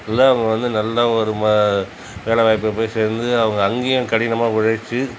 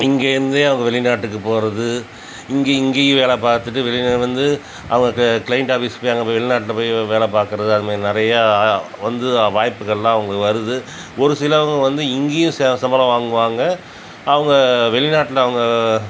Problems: constant background noise